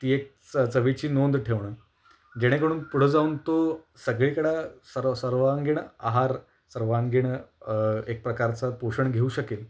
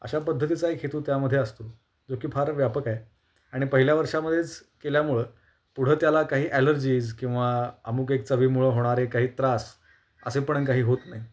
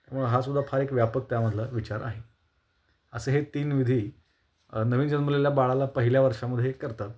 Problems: constant background noise